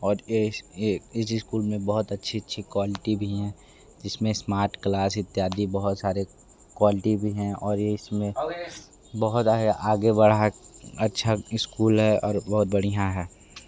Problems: background sounds at intervals